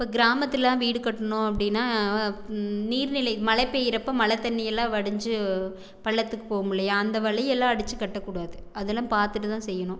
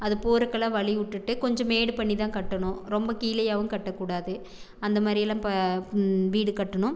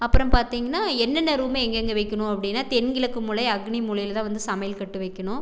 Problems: none marked